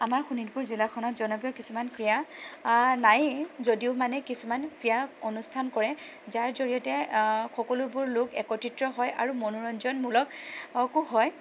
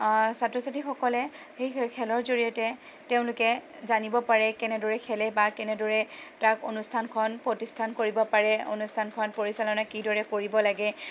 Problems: constant background noise